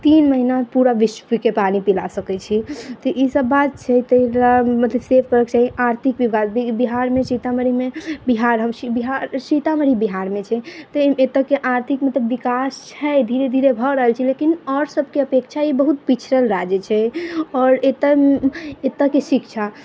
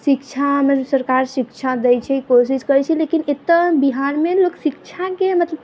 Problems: background sounds at intervals